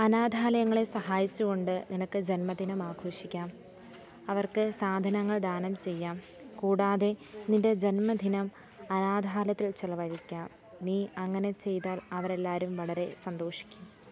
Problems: background sounds at intervals, low volume